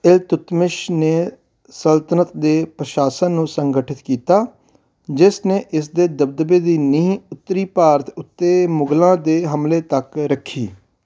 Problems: background sounds at intervals